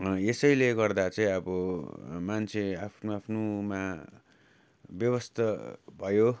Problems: constant background noise